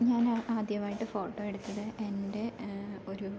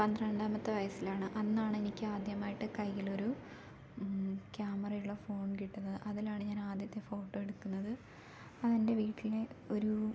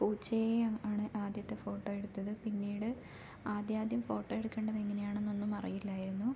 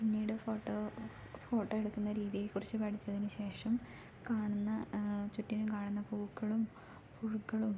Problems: low volume